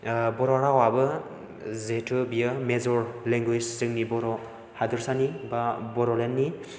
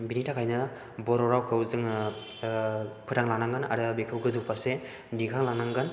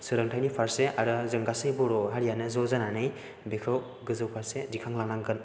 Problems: background sounds at intervals